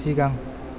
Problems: constant background noise